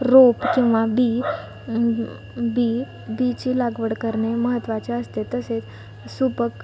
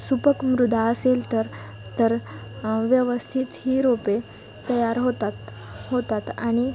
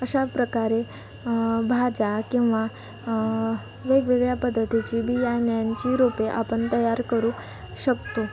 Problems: none marked